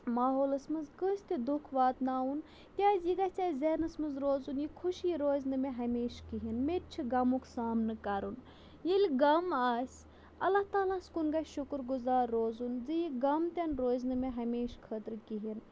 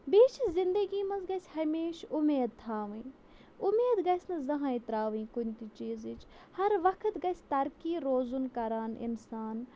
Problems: low volume